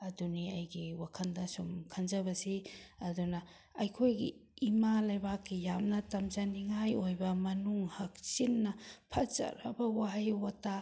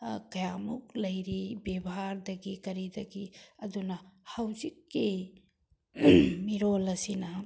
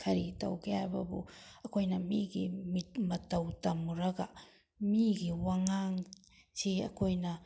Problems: none marked